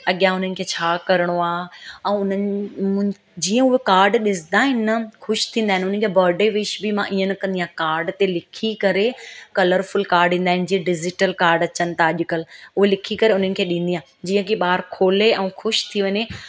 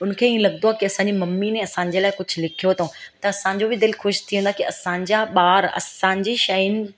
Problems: constant background noise